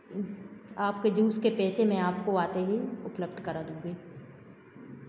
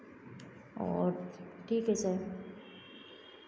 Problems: constant background noise, background conversations at intervals